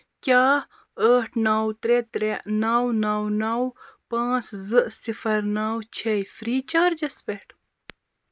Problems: constant background noise